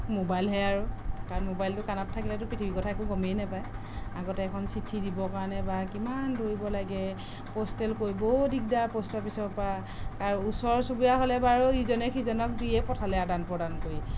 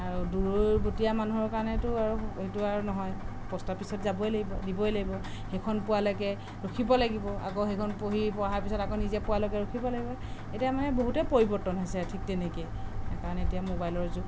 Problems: background sounds at intervals, background conversations at intervals